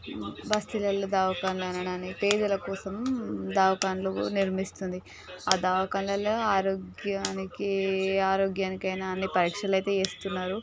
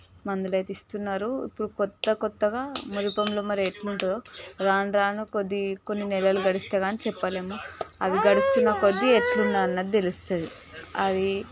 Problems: background sounds at intervals, continuous background conversations